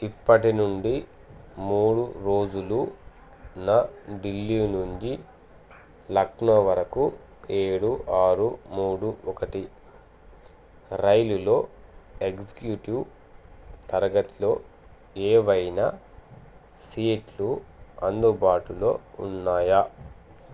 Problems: constant background noise